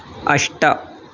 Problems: constant background noise